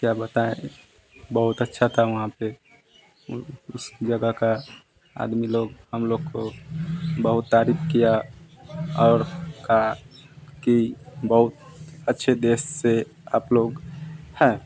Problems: constant background noise